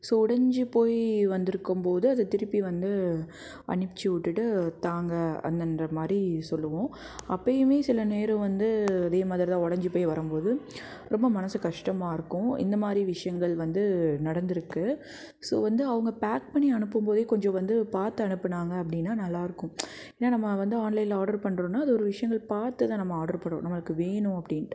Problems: background sounds at intervals